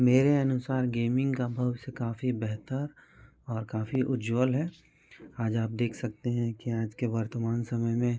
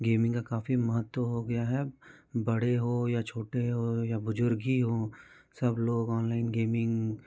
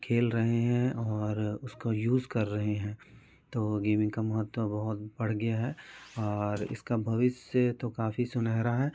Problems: none marked